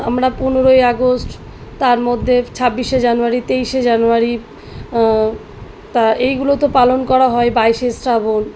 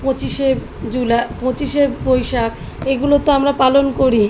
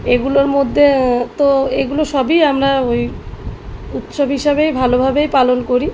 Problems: background sounds at intervals